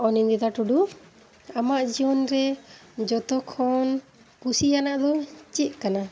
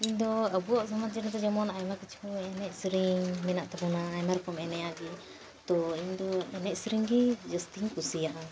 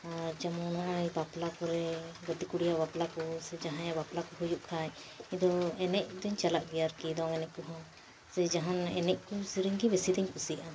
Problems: background sounds at intervals